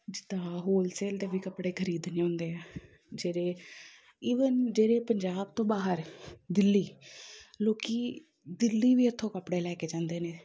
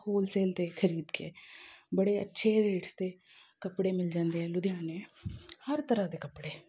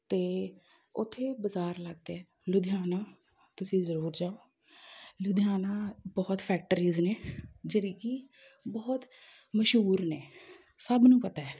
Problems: background conversations at intervals